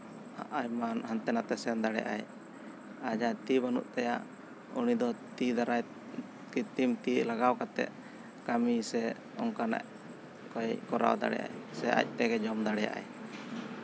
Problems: constant background noise